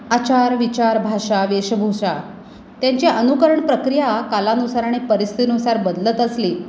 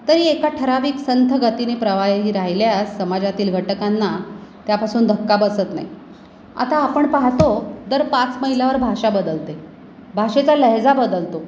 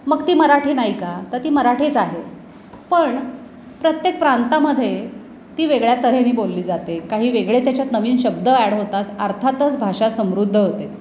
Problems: none marked